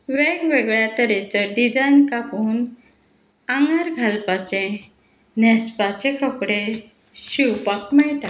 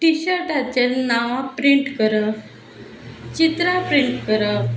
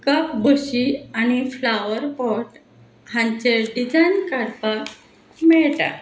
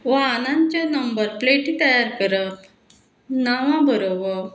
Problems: constant background noise